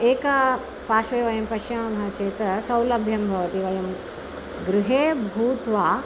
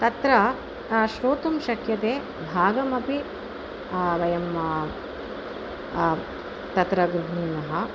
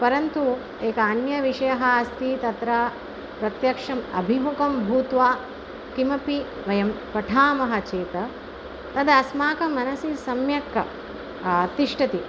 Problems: none marked